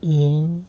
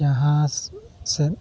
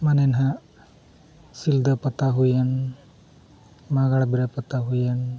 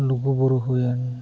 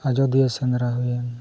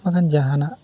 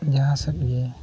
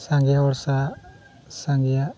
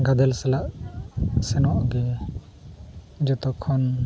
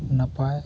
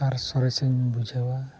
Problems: background sounds at intervals